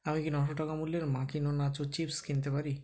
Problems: background conversations at intervals